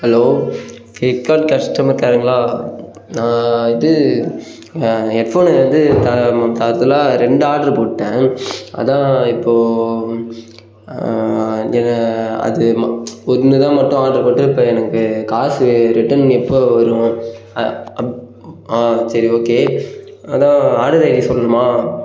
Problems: background sounds at intervals